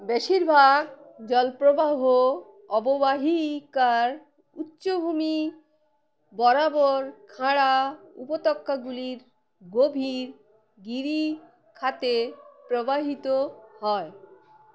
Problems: background sounds at intervals